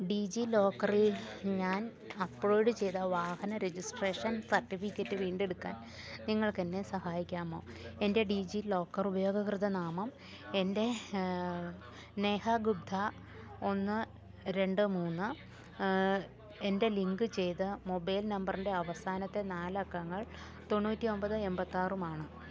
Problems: low volume